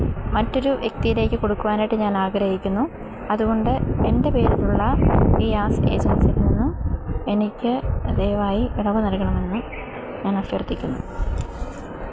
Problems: constant background noise